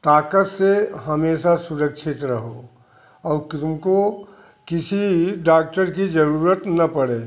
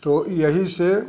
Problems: constant background noise